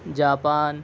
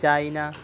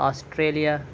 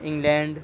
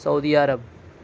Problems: constant background noise